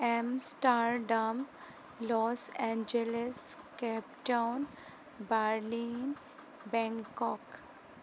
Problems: constant background noise